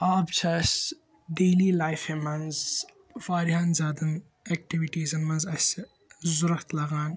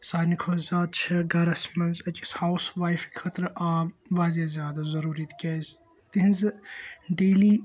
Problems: constant background noise